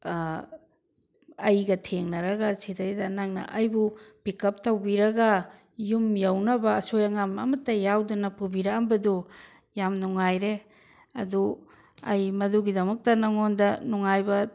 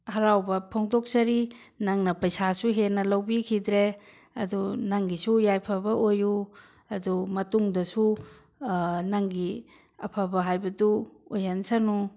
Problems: none marked